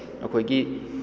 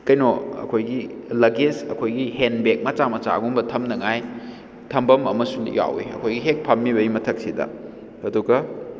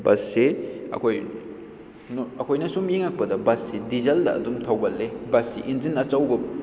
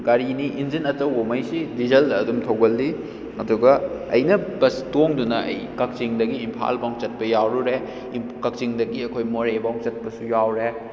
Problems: none marked